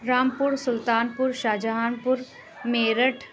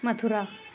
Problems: constant background noise